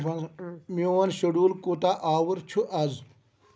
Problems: background sounds at intervals